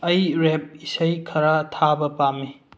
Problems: low volume